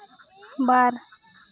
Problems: none marked